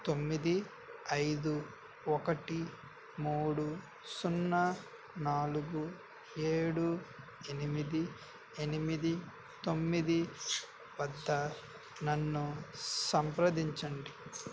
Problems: constant background noise